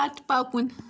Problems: none marked